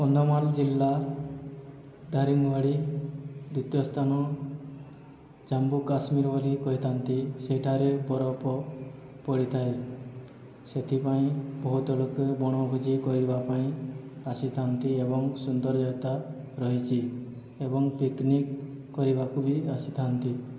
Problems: none marked